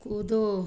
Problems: none marked